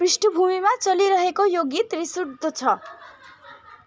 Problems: continuous background conversations